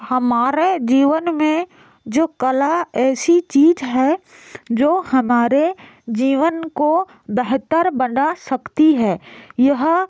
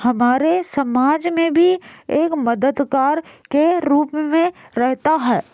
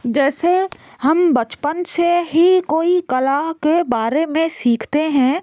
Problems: constant background noise